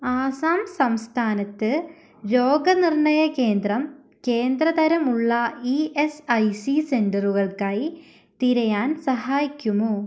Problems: none marked